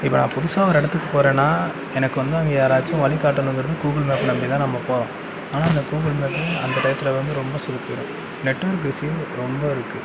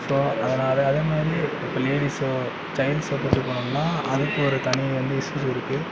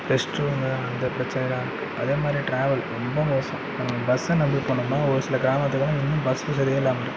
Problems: background conversations at intervals